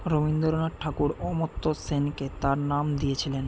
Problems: constant background noise